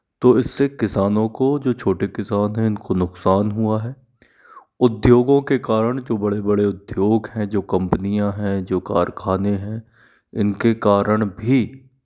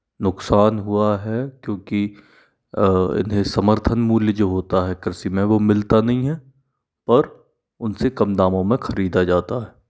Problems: background sounds at intervals